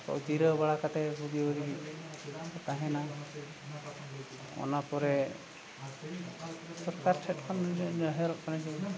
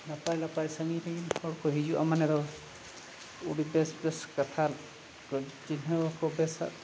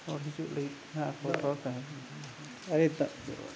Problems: constant background noise, background conversations at intervals